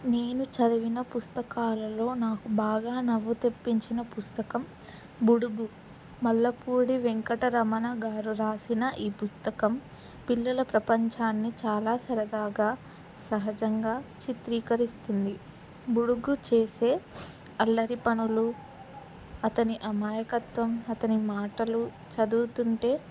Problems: background sounds at intervals